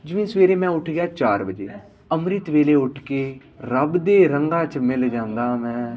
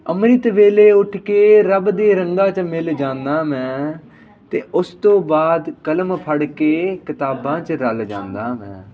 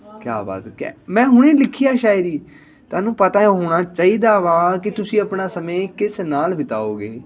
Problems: constant background noise, background conversations at intervals